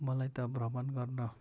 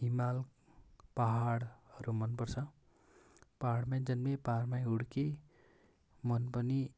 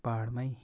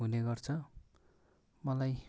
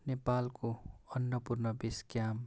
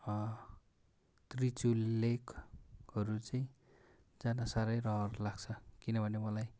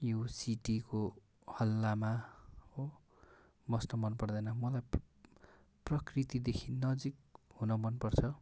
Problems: none marked